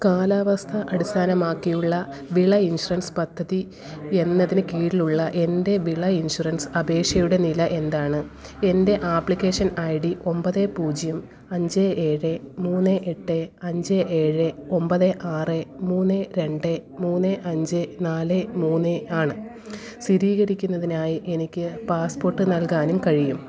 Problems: background conversations at intervals